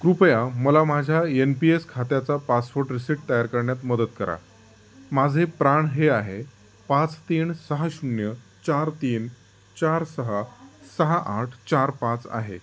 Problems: constant background noise